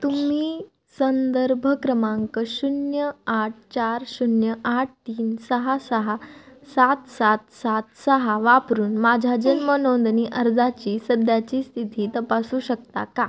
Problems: constant background noise